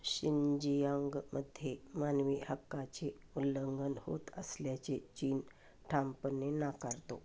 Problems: none marked